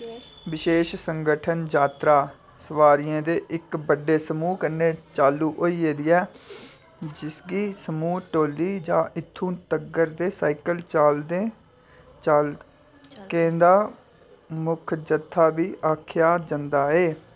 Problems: constant background noise, background conversations at intervals